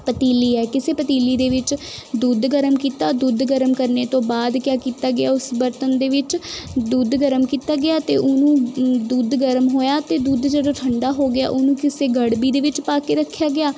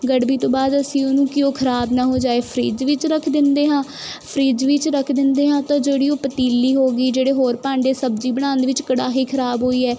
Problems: constant background noise